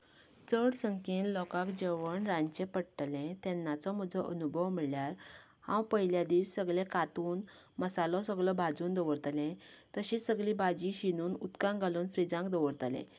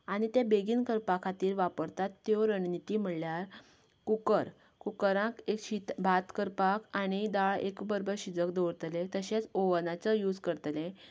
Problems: none marked